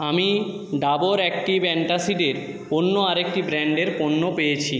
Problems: echo